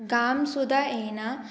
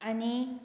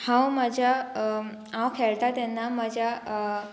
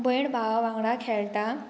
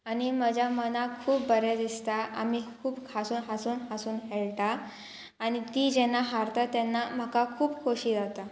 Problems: constant background noise